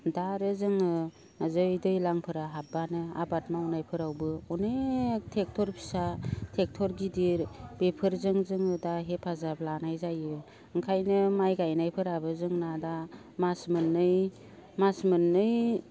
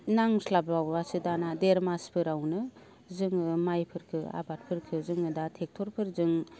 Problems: low volume